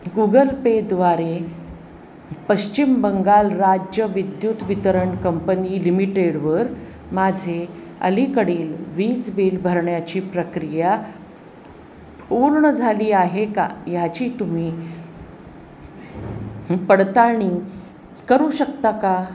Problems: none marked